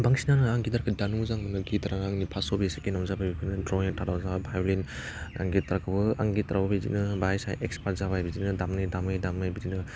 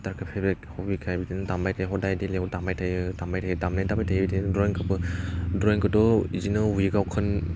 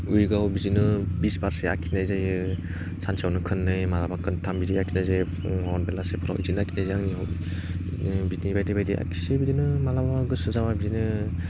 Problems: none marked